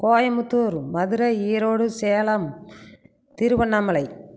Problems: none marked